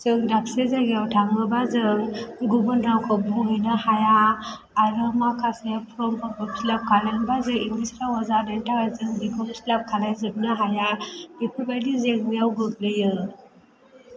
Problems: low volume